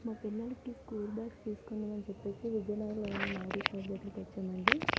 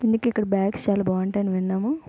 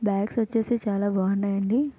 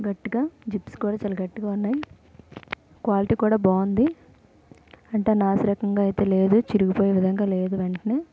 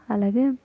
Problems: background sounds at intervals